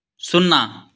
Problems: none marked